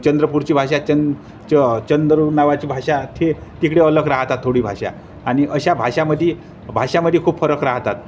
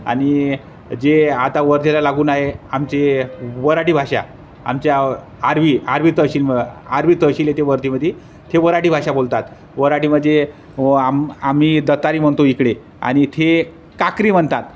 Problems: constant background noise